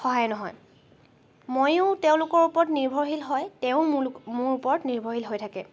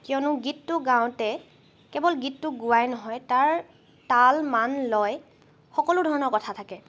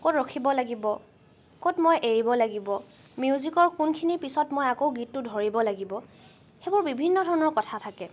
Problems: none marked